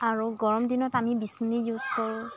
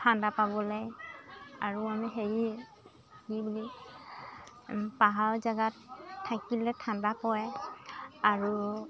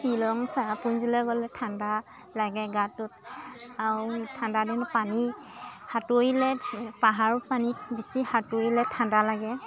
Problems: constant background noise, continuous background conversations